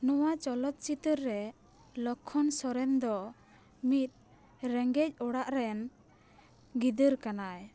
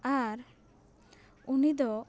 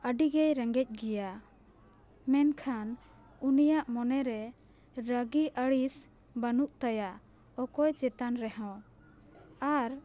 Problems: background sounds at intervals